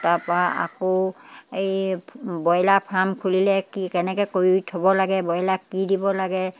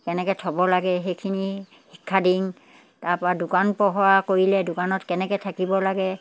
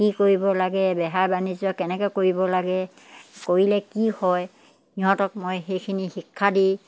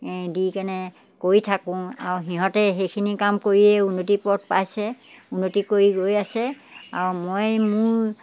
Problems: none marked